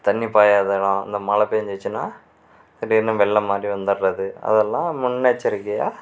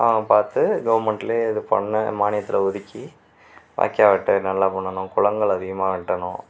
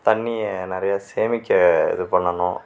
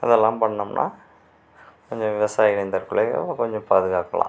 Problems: none marked